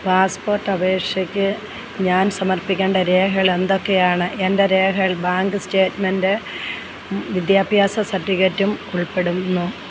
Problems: low volume